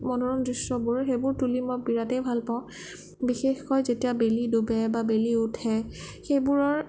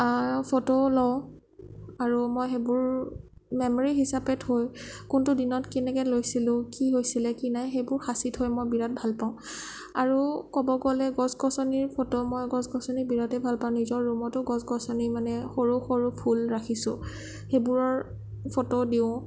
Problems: none marked